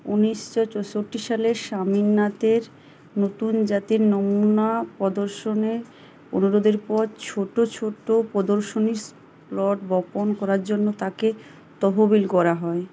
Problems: none marked